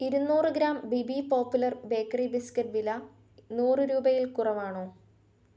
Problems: none marked